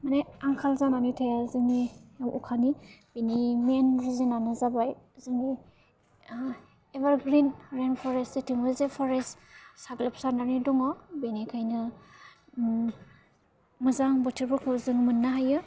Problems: constant background noise